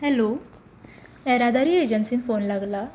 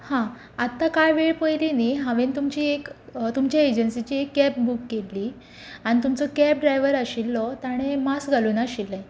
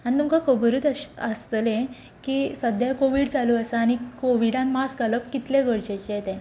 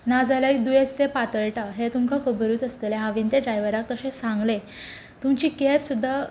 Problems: constant background noise